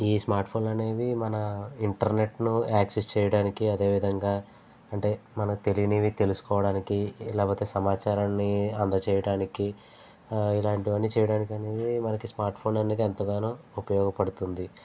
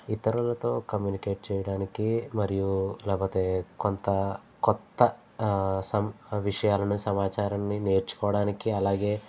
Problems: constant background noise